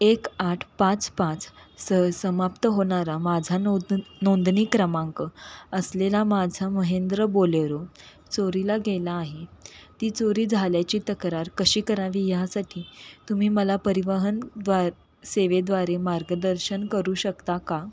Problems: constant background noise